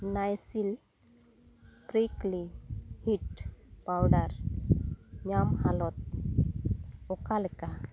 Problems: constant background noise